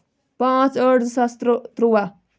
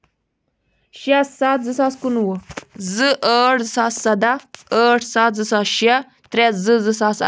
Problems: background sounds at intervals